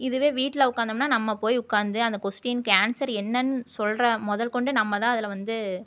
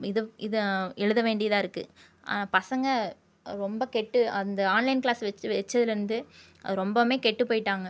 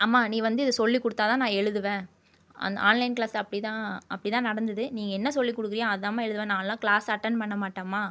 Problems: none marked